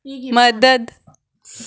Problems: background sounds at intervals